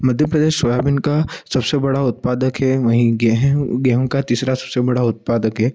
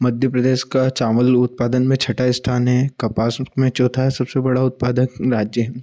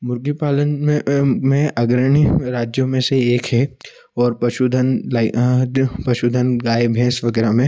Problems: echo